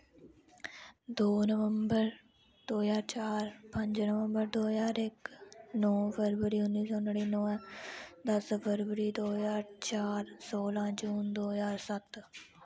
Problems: none marked